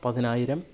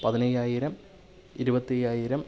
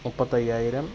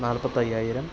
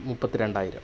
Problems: none marked